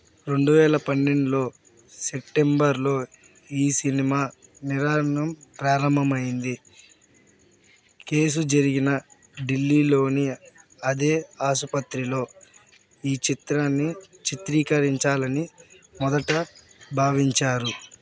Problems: background sounds at intervals